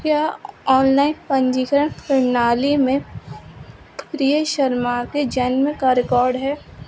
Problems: constant background noise